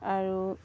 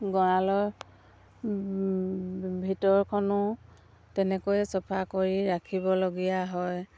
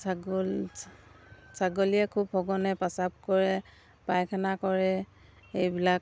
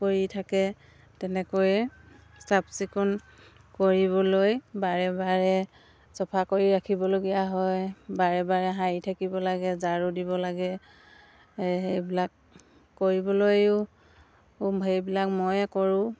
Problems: background sounds at intervals